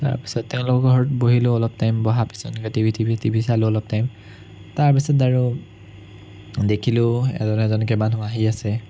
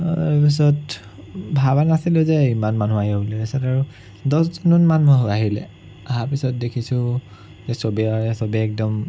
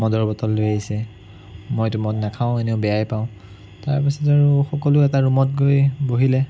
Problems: none marked